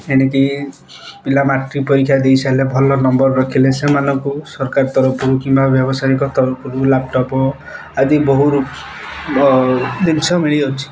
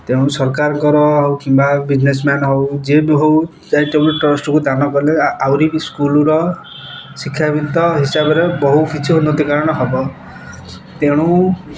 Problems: constant background noise